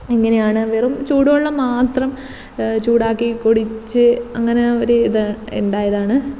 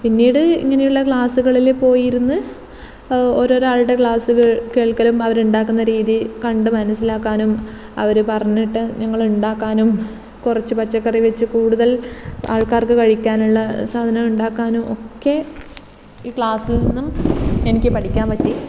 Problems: constant background noise